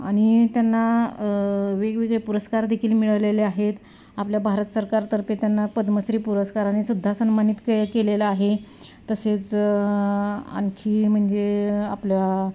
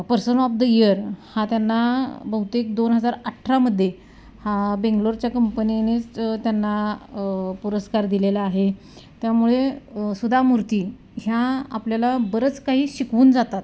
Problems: none marked